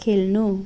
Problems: background sounds at intervals